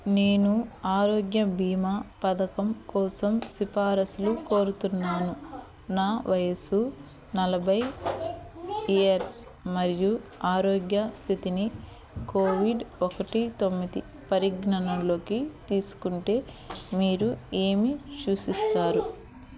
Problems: background conversations at intervals